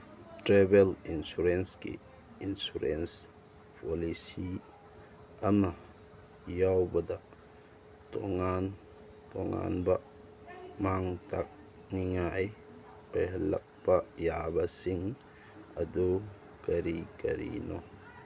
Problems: background sounds at intervals